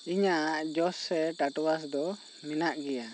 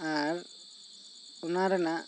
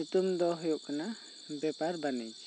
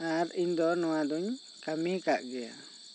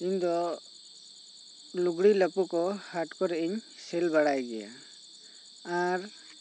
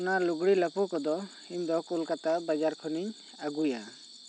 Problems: constant background noise